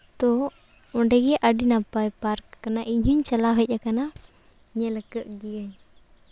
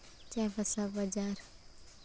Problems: none marked